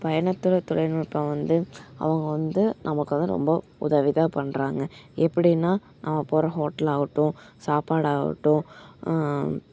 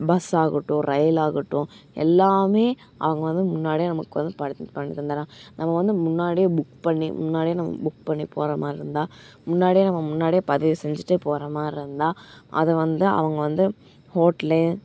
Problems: background sounds at intervals